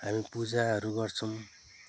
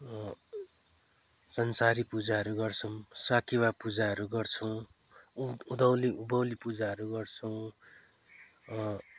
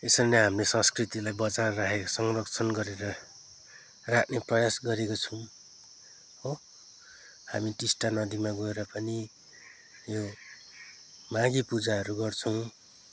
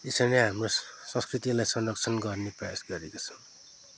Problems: background sounds at intervals